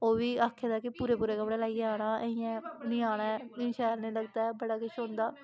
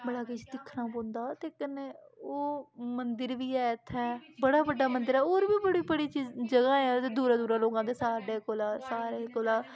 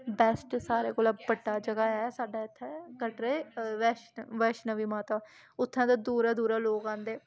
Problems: constant background noise